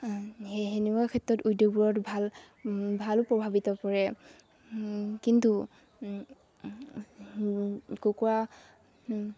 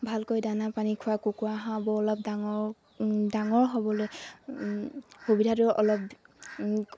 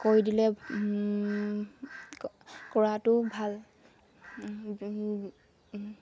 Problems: none marked